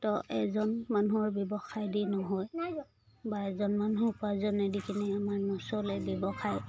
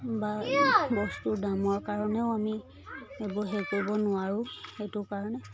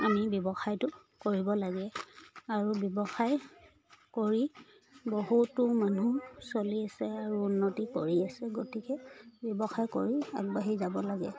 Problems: background sounds at intervals